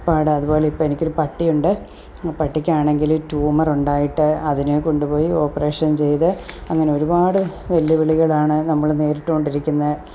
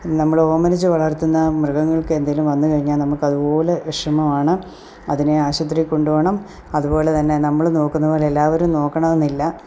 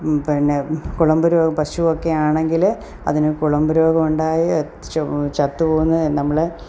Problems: none marked